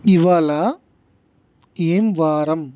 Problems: constant background noise